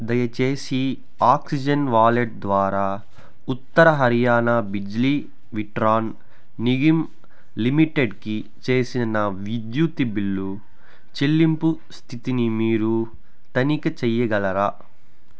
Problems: none marked